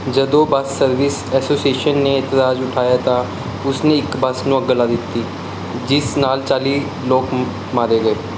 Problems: background sounds at intervals